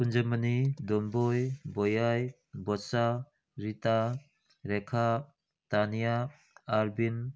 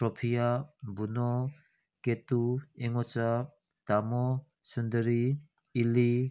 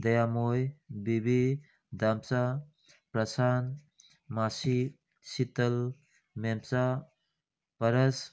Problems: none marked